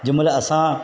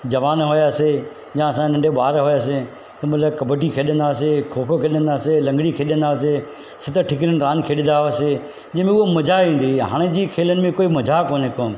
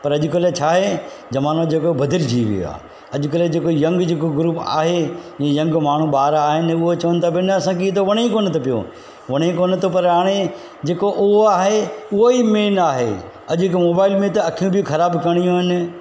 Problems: constant background noise